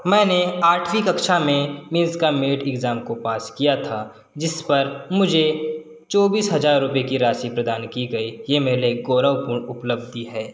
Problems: none marked